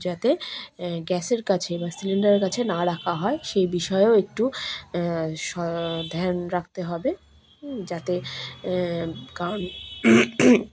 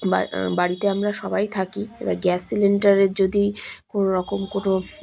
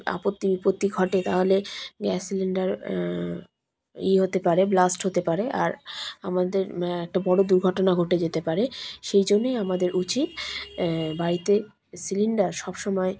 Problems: constant background noise